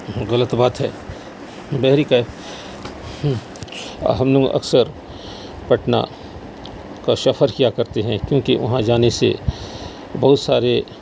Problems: constant background noise